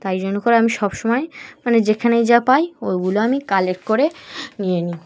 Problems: background sounds at intervals